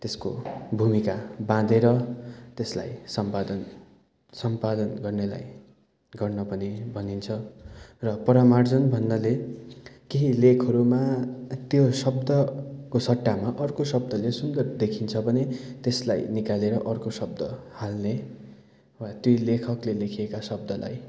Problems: constant background noise